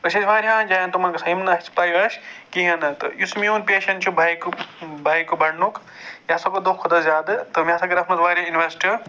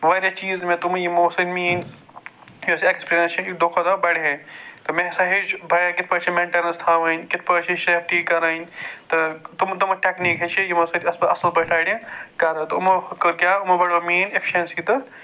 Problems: constant background noise